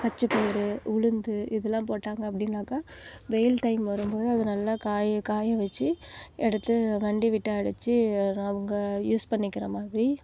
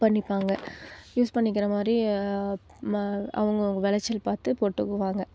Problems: background sounds at intervals